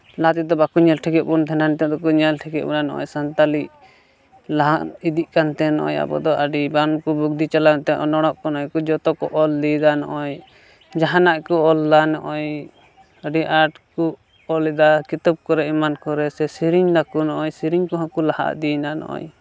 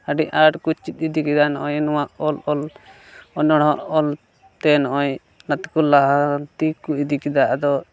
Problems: background sounds at intervals, background conversations at intervals